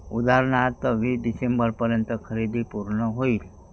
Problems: background sounds at intervals